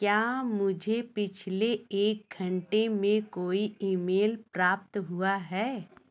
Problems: none marked